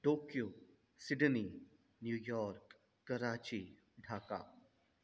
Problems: constant background noise, echo